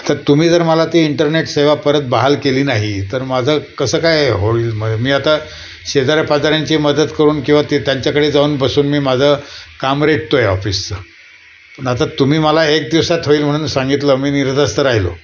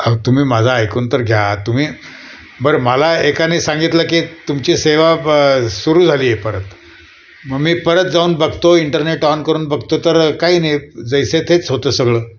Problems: none marked